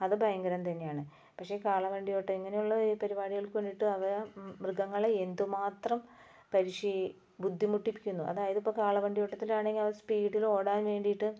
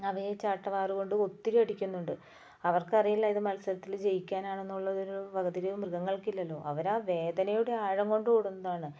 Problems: low volume